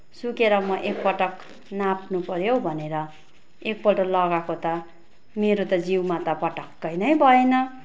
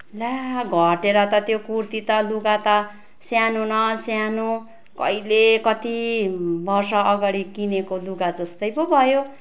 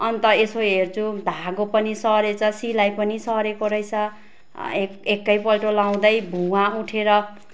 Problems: constant background noise